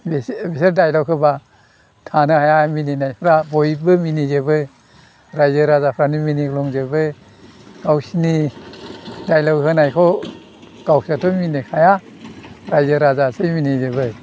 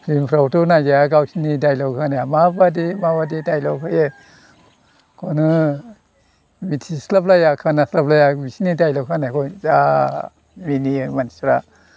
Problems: none marked